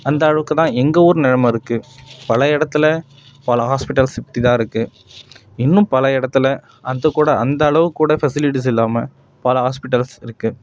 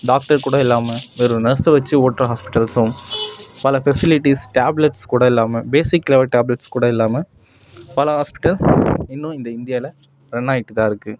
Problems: constant background noise, background conversations at intervals